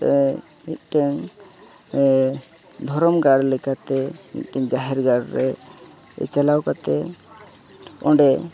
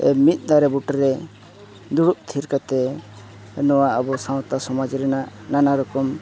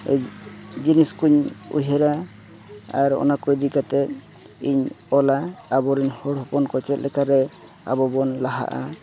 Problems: continuous background conversations